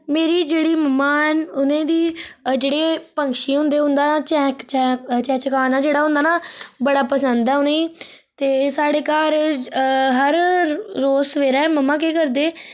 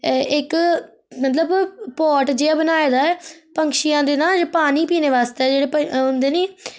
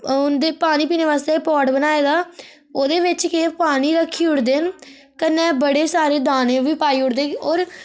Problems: none marked